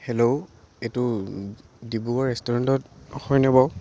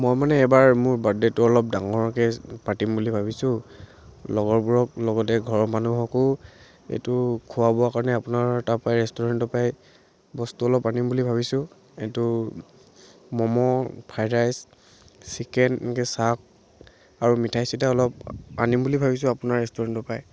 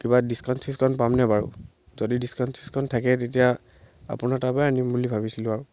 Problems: none marked